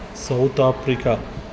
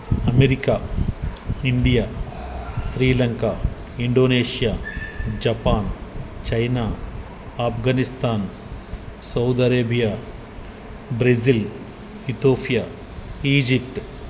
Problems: constant background noise, background conversations at intervals